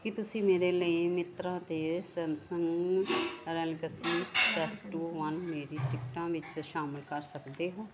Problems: constant background noise, background conversations at intervals